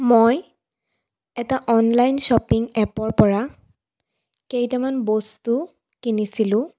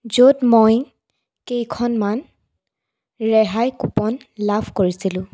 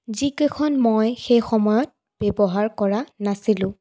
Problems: none marked